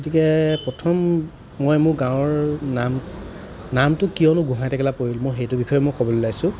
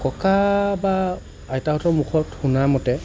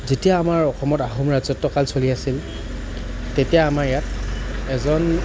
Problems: none marked